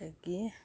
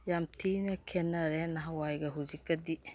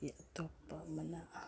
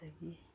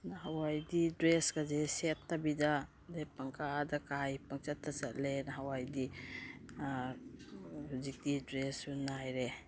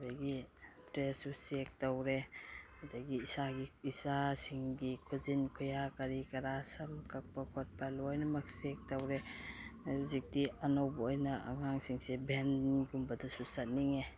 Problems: background sounds at intervals